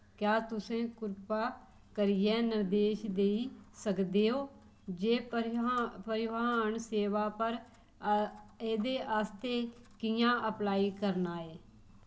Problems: none marked